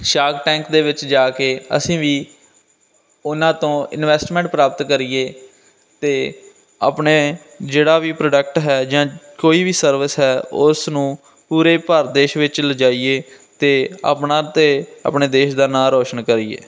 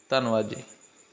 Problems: constant background noise